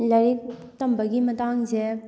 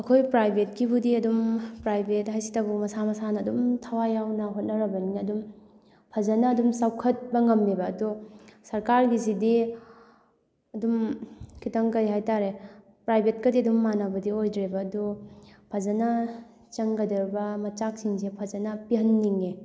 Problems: background sounds at intervals